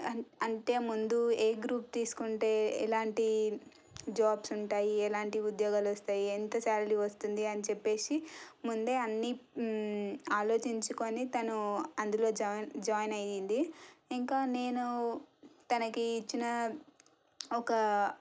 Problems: low volume